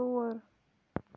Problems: background sounds at intervals